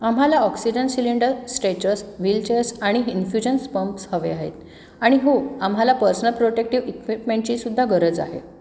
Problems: constant background noise, echo